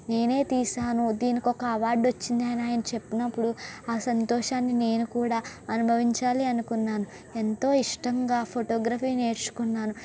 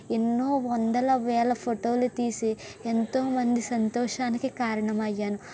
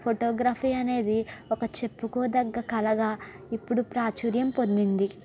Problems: constant background noise